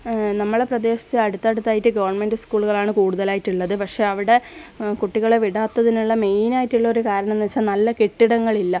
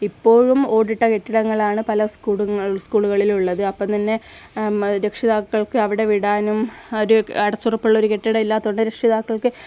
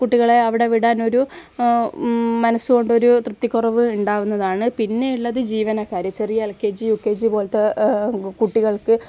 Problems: none marked